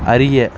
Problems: none marked